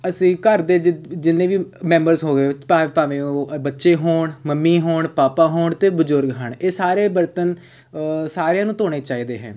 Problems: background sounds at intervals